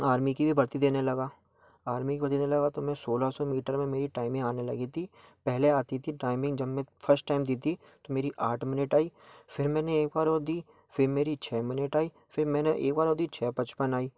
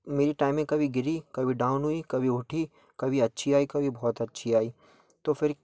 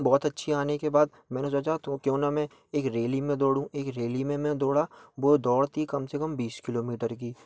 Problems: background sounds at intervals